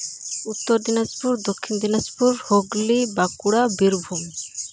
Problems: constant background noise